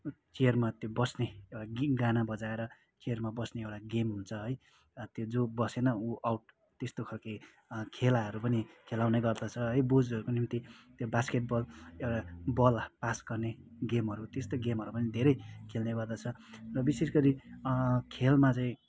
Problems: background sounds at intervals